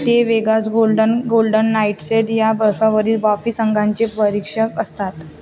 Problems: constant background noise, continuous background conversations